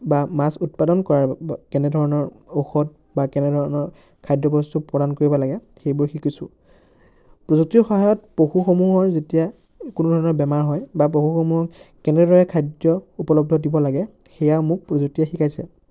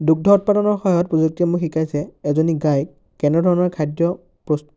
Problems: constant background noise, background conversations at intervals